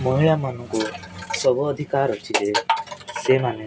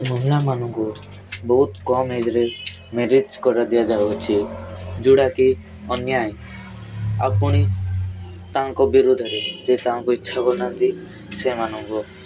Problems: constant background noise